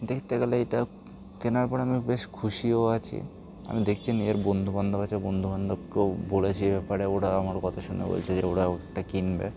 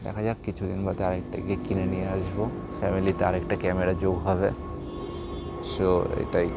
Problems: none marked